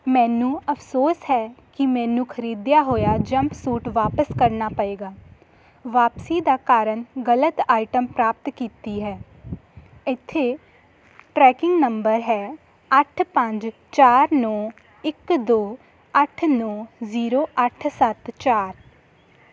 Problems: constant background noise